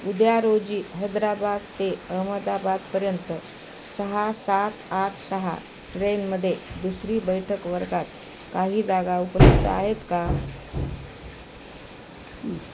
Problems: constant background noise, background conversations at intervals